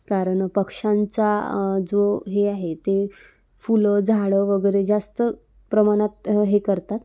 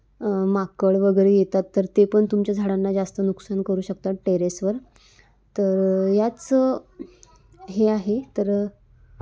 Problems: none marked